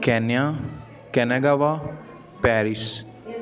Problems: constant background noise